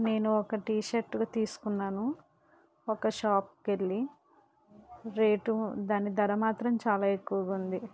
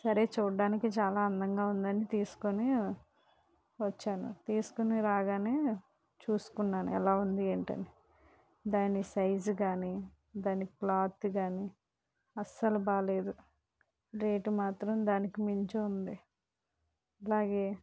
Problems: low volume